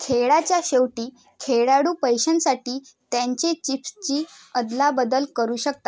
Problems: constant background noise